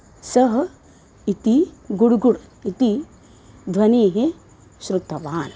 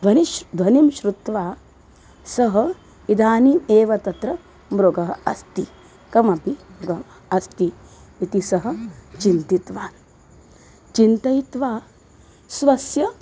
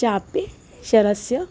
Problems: none marked